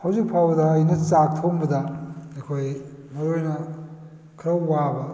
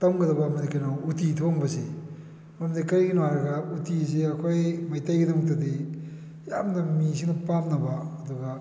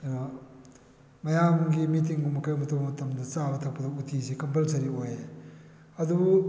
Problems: background sounds at intervals